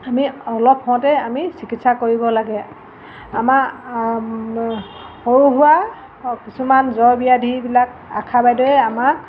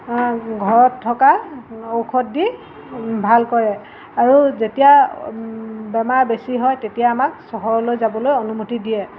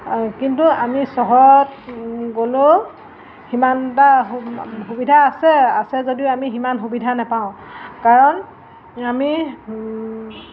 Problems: constant background noise